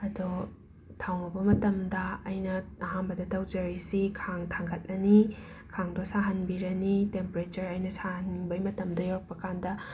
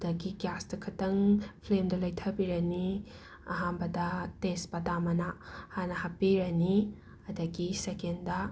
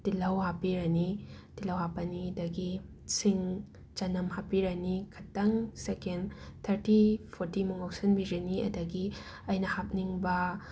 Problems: background sounds at intervals